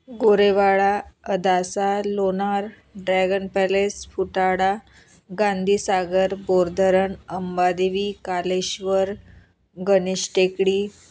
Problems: none marked